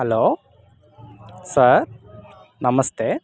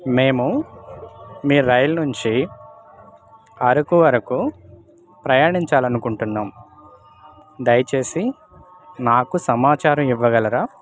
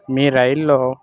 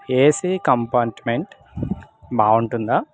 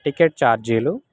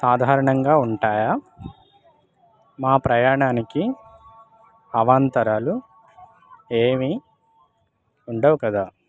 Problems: constant background noise